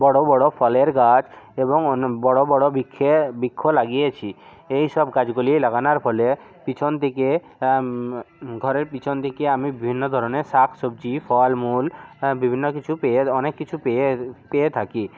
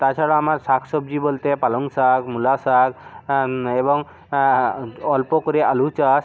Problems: none marked